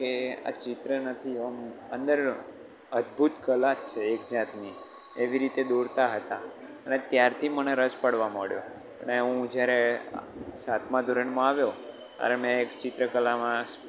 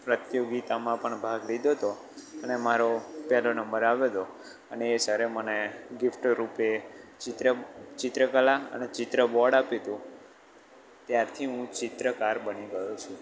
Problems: constant background noise